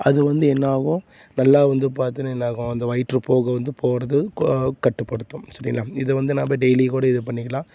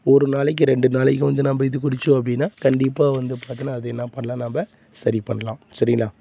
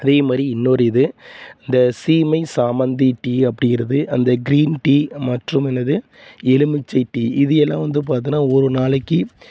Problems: constant background noise